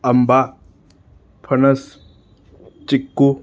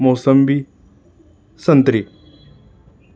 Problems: background sounds at intervals